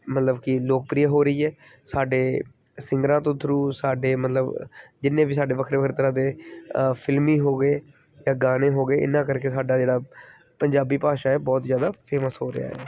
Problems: background sounds at intervals